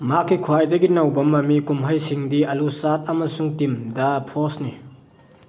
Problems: background sounds at intervals